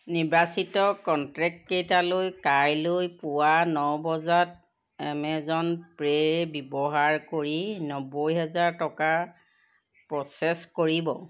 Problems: none marked